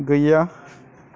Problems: none marked